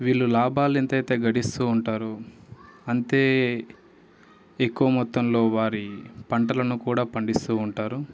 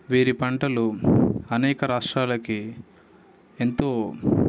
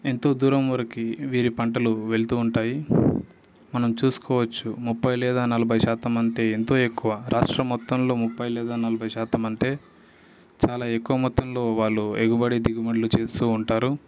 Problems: background sounds at intervals